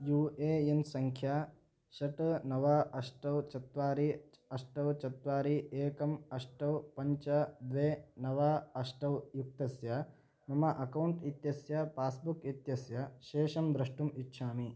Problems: none marked